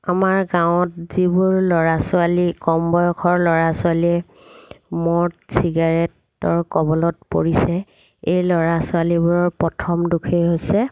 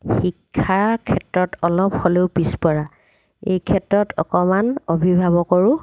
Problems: background sounds at intervals